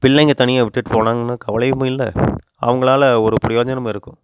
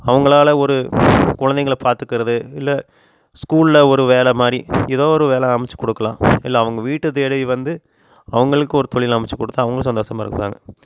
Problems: constant background noise